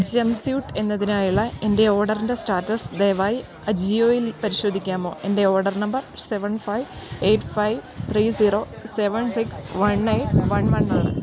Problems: background sounds at intervals